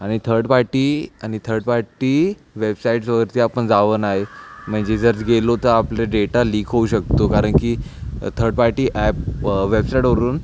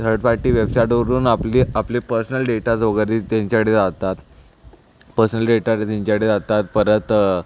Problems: none marked